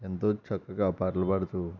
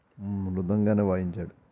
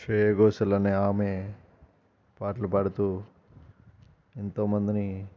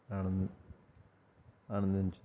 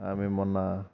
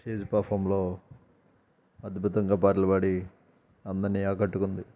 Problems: constant background noise, background conversations at intervals